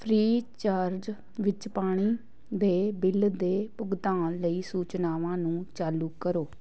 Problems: background sounds at intervals